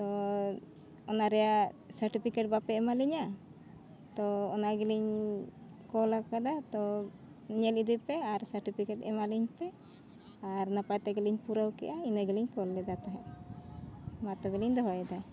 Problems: none marked